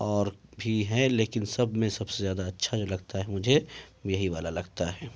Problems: none marked